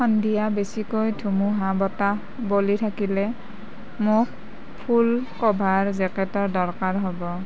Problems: background sounds at intervals